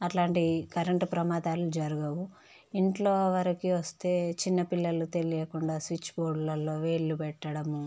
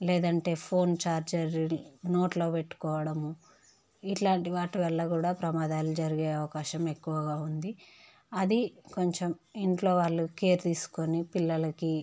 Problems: none marked